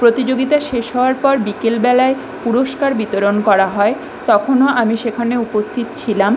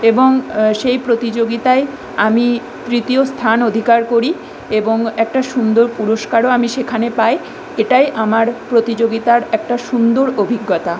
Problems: constant background noise